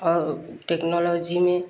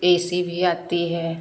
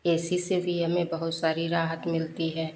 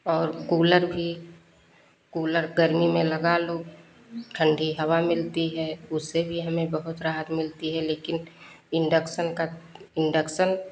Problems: none marked